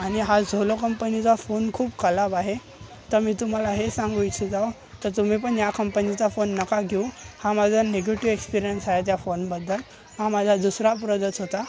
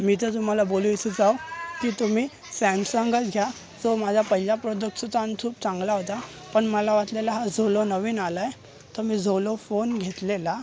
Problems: constant background noise, continuous background conversations